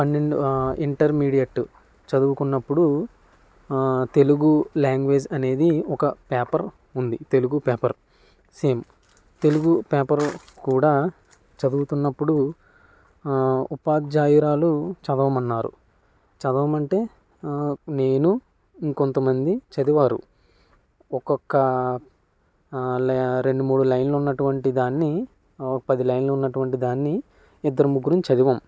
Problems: none marked